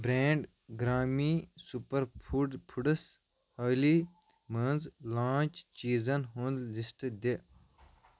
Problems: none marked